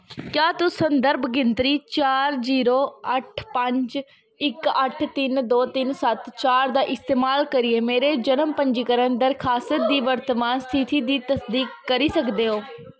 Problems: none marked